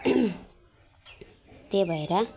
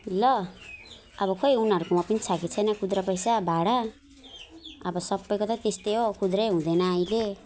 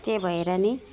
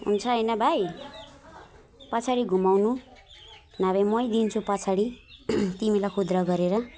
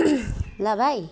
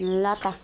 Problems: constant background noise, background conversations at intervals, low volume